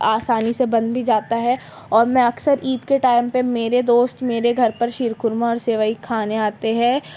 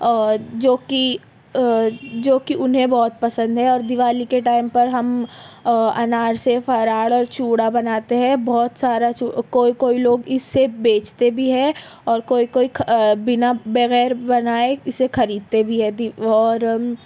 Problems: background sounds at intervals, background conversations at intervals